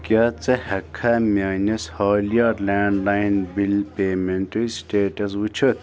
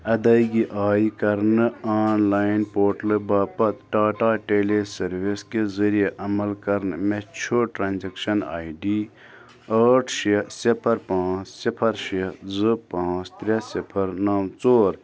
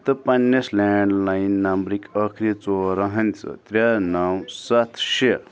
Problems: background sounds at intervals, background conversations at intervals